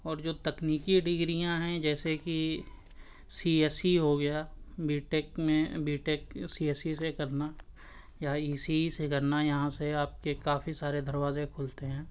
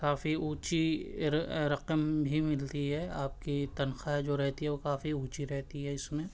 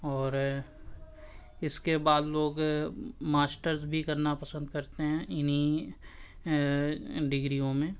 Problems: constant background noise